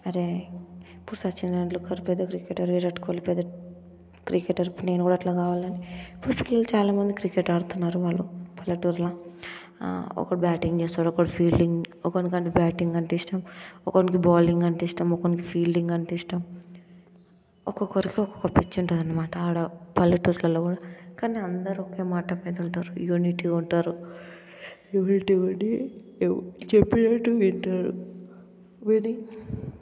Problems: constant background noise, background conversations at intervals